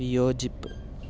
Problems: low volume